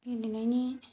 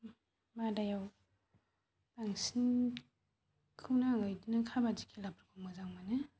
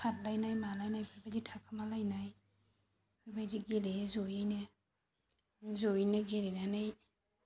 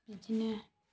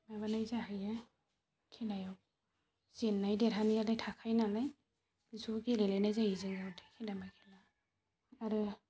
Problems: constant background noise